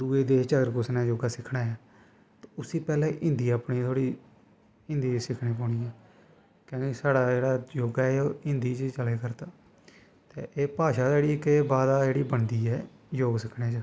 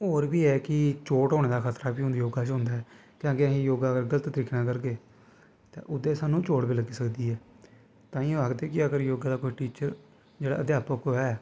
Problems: constant background noise